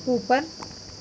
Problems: none marked